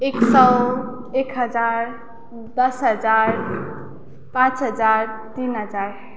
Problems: none marked